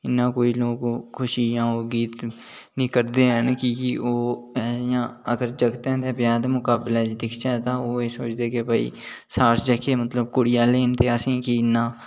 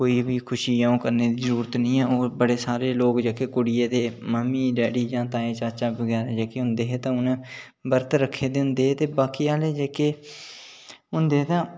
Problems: none marked